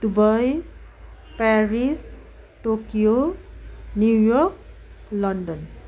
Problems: background conversations at intervals